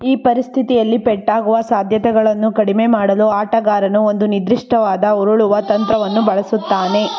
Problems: background sounds at intervals